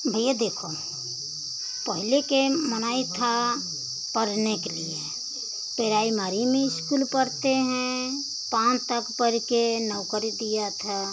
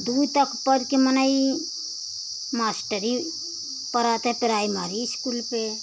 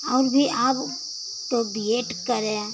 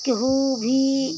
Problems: constant background noise